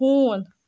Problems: none marked